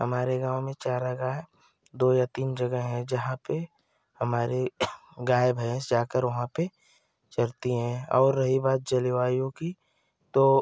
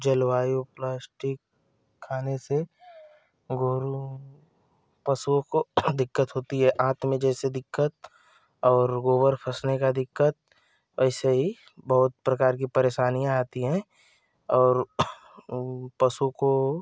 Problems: constant background noise